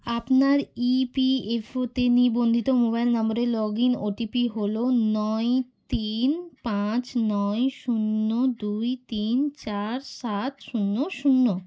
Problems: background sounds at intervals